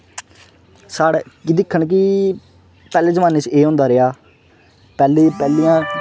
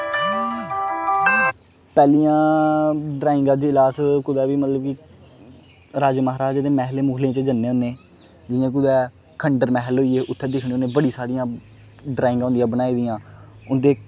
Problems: none marked